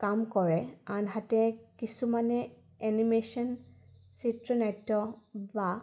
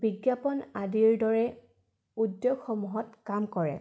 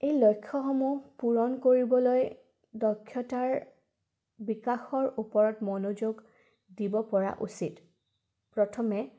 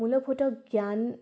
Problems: background sounds at intervals